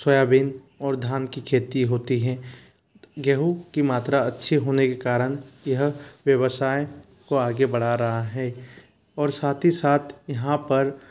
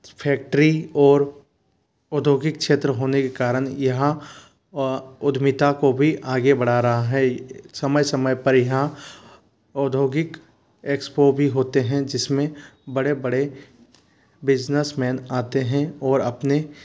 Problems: constant background noise